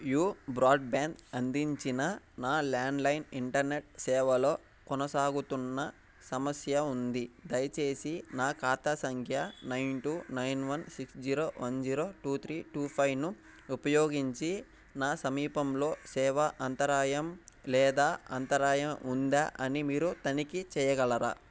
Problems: background sounds at intervals